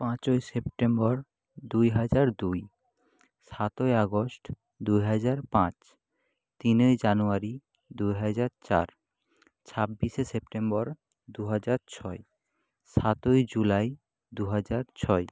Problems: none marked